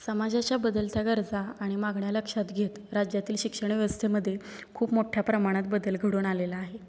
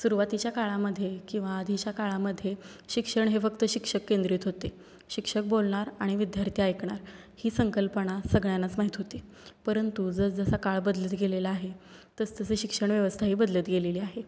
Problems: constant background noise